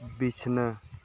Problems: none marked